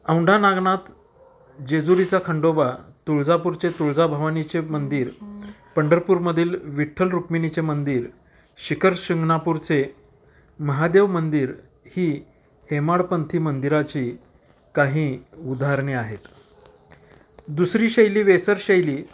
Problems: none marked